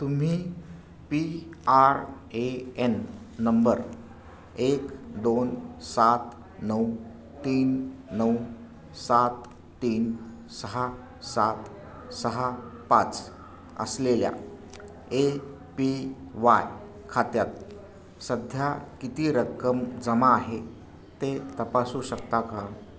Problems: none marked